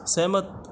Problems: none marked